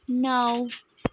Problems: background sounds at intervals